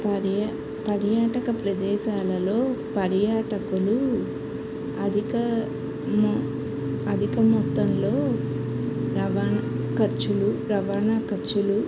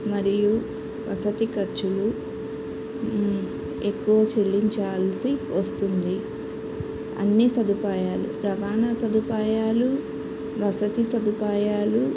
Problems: constant background noise, background conversations at intervals